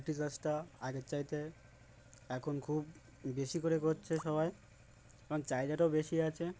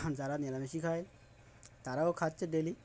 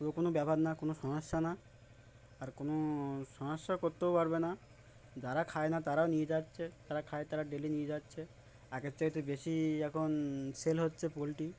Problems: background sounds at intervals, background conversations at intervals